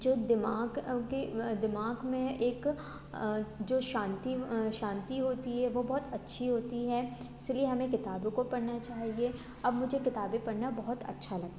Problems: background sounds at intervals